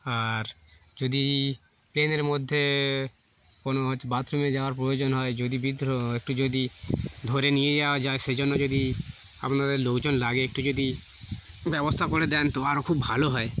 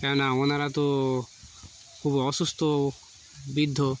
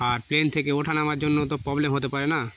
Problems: constant background noise